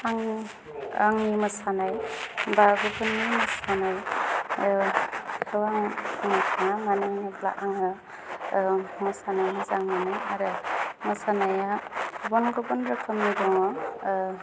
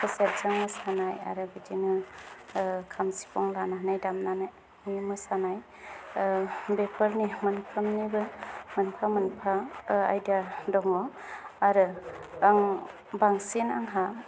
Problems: none marked